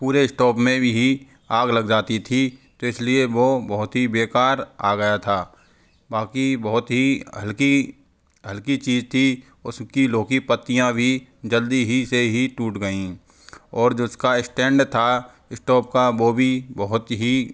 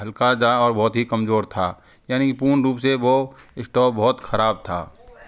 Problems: constant background noise